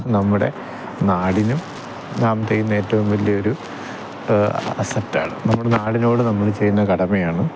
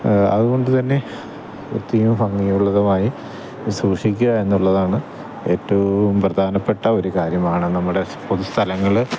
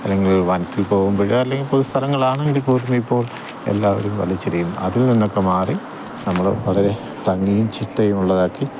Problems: none marked